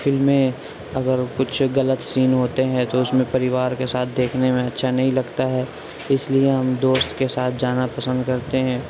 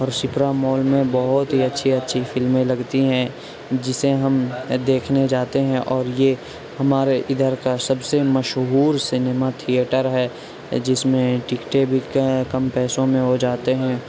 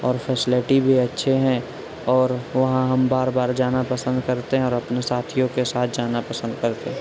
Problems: constant background noise